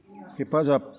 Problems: constant background noise